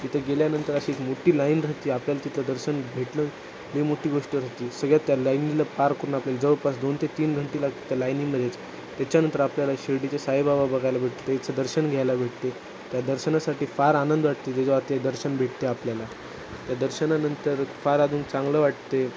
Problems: constant background noise